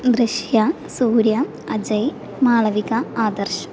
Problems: none marked